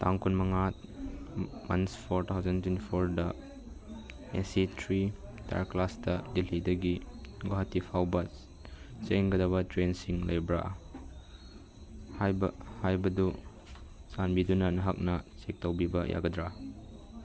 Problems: background sounds at intervals